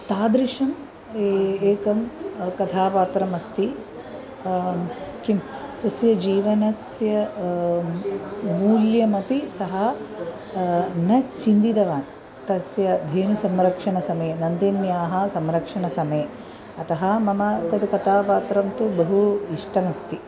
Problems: background sounds at intervals